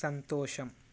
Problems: none marked